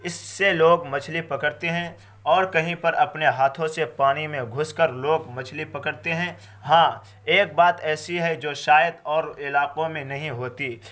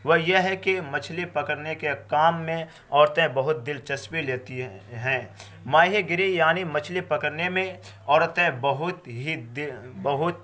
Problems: constant background noise